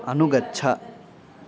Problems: background conversations at intervals